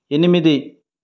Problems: none marked